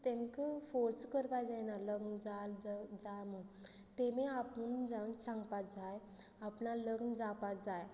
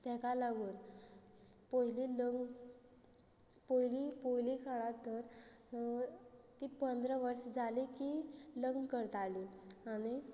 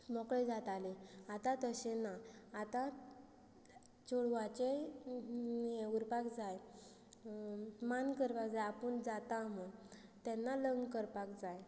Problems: low volume